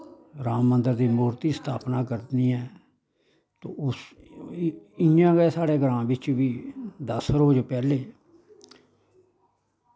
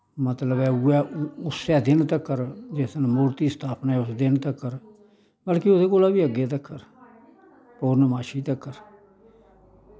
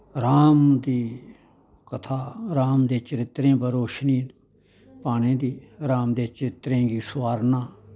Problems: constant background noise